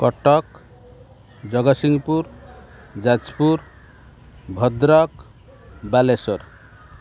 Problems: constant background noise